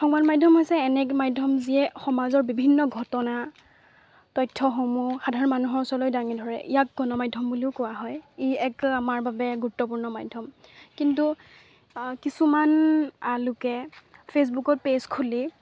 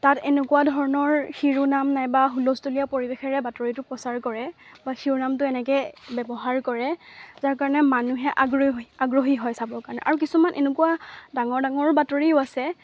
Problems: constant background noise